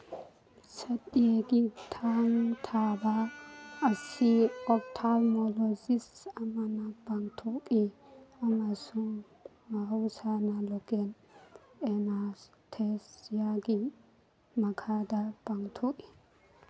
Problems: background sounds at intervals